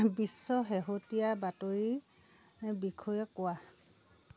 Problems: none marked